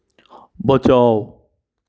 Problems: background sounds at intervals